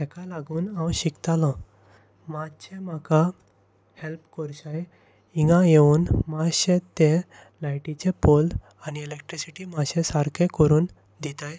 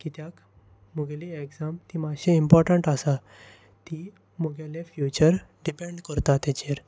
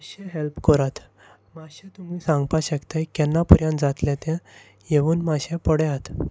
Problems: constant background noise